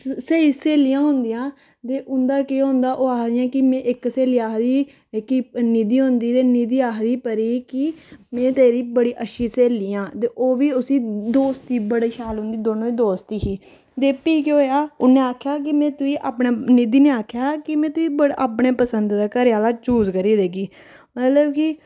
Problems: none marked